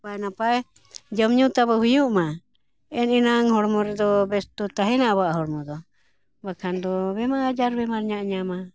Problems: background sounds at intervals